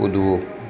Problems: continuous background conversations